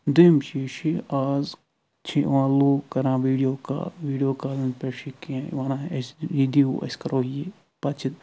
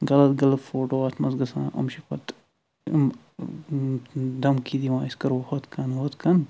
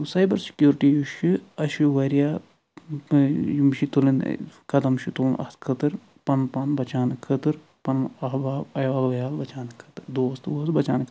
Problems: none marked